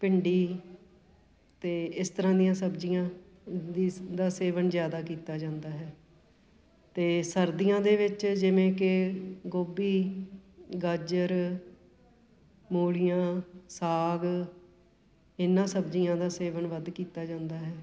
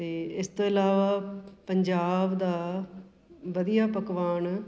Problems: background sounds at intervals, background conversations at intervals